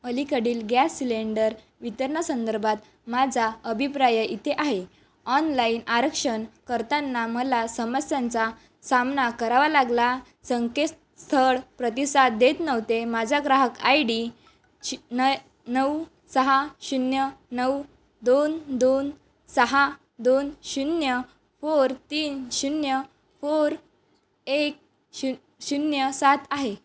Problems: background sounds at intervals